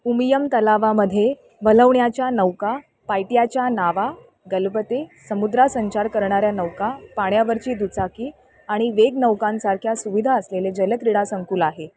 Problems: none marked